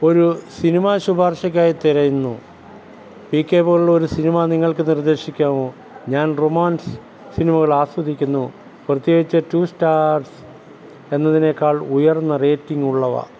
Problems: none marked